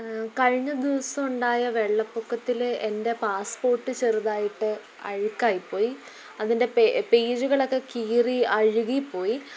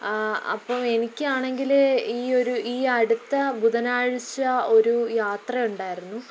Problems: low volume